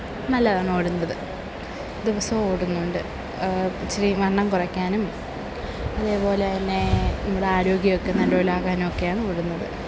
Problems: none marked